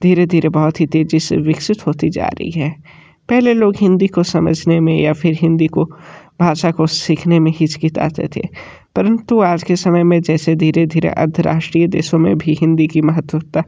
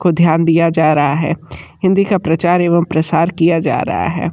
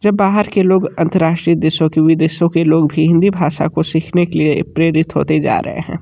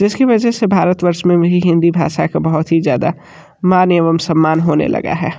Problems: none marked